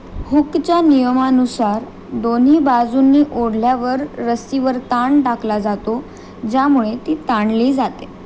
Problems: constant background noise